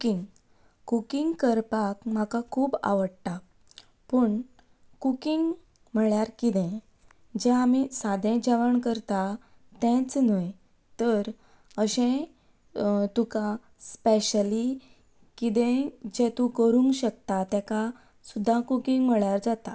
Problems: background sounds at intervals